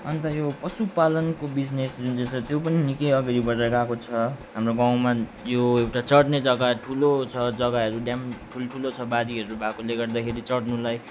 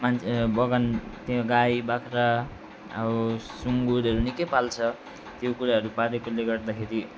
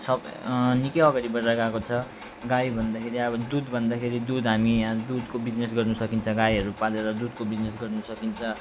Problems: constant background noise